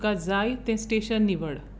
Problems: constant background noise